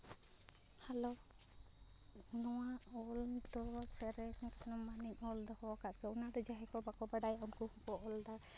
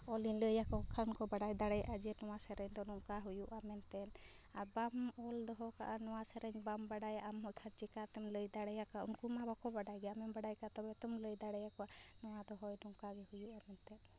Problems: constant background noise